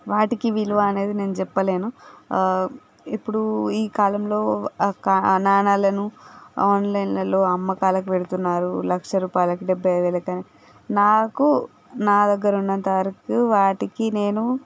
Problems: background sounds at intervals